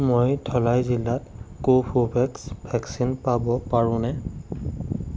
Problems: none marked